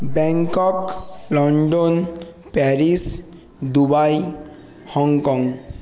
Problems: background sounds at intervals